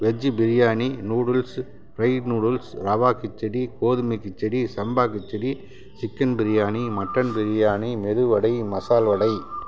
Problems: constant background noise